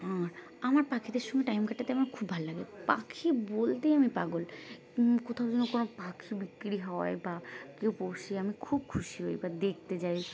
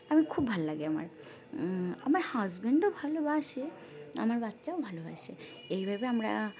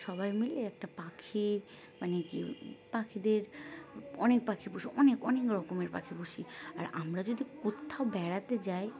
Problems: constant background noise, background conversations at intervals